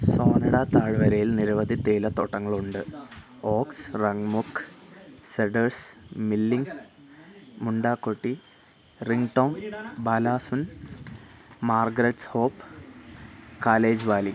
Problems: background conversations at intervals